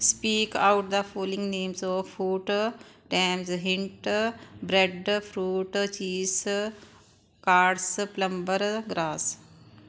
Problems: background sounds at intervals